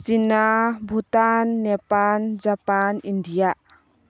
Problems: low volume